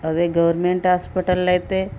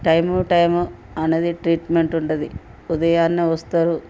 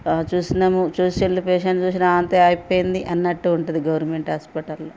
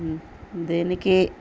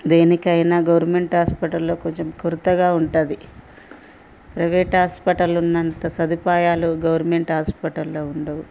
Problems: constant background noise